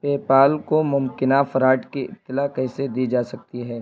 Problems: constant background noise